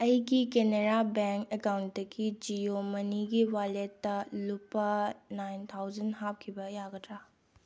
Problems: low volume